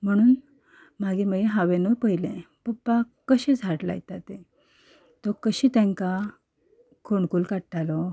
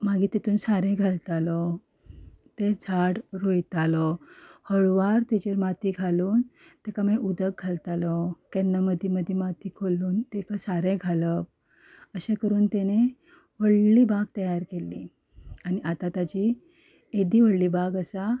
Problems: background sounds at intervals, background conversations at intervals